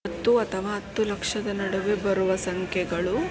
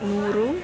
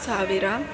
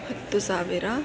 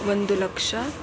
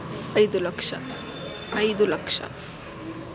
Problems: none marked